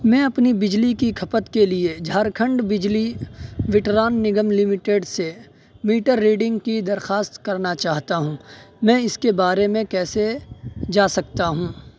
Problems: constant background noise